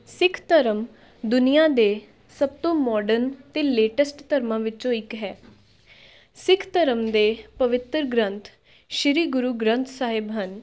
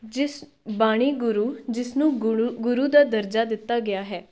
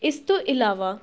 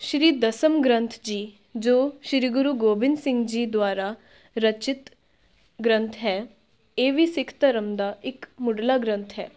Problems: background conversations at intervals